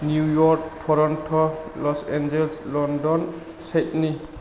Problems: low volume